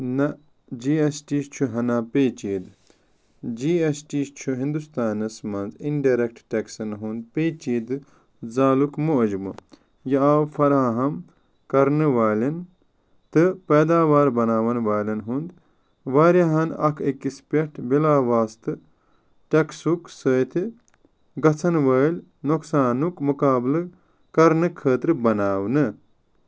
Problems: none marked